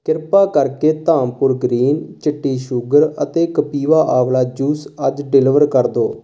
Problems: constant background noise